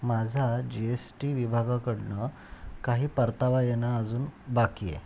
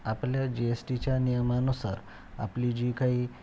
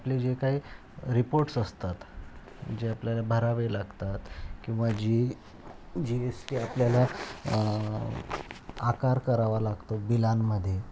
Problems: constant background noise